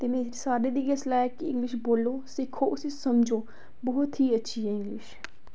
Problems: none marked